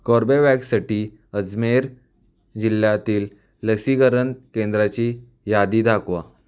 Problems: none marked